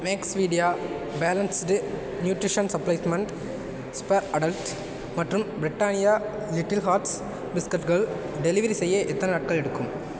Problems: constant background noise